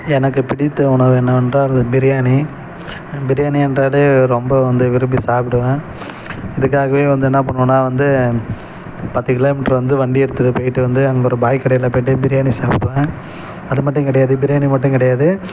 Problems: none marked